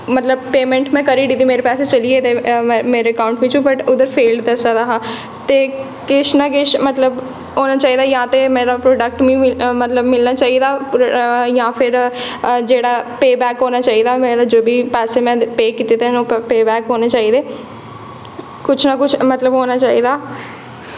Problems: echo